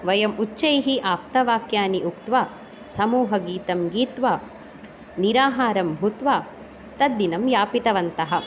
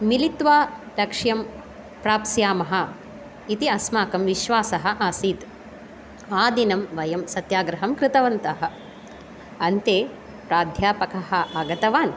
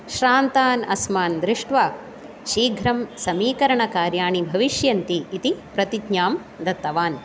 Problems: none marked